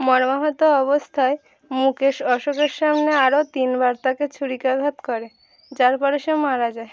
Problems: constant background noise